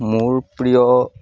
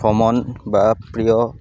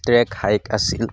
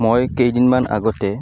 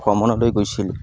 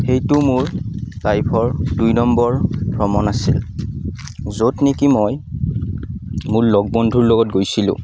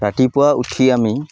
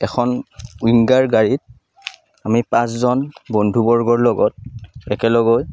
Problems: none marked